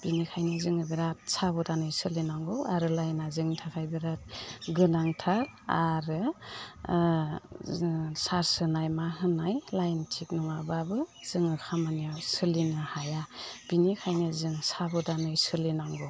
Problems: none marked